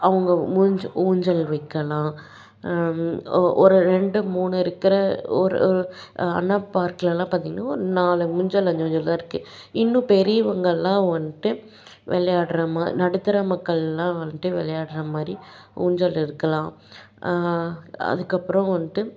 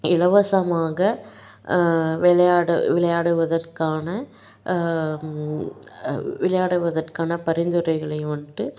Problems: none marked